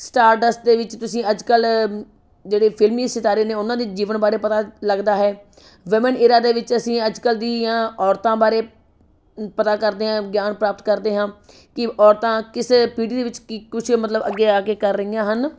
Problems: background sounds at intervals